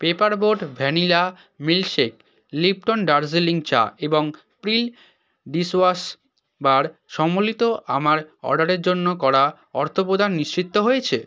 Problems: background sounds at intervals